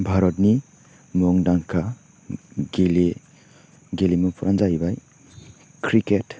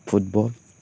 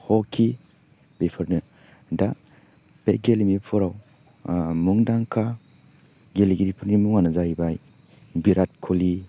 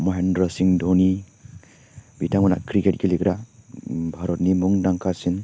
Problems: none marked